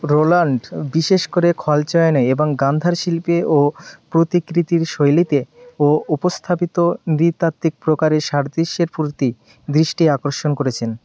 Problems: none marked